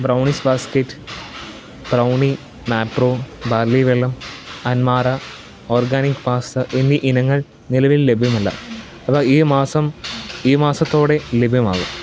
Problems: constant background noise, low volume